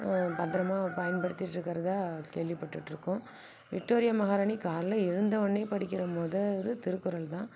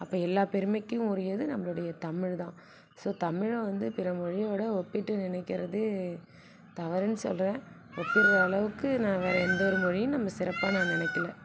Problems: background sounds at intervals